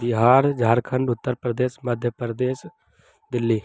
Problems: constant background noise